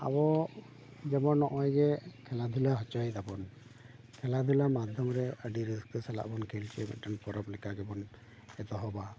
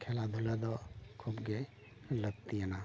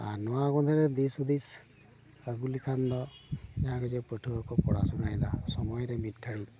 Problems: background sounds at intervals